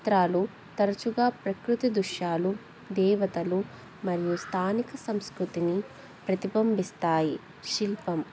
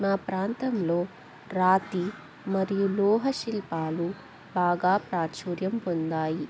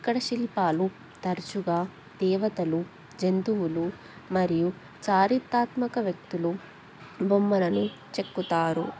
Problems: constant background noise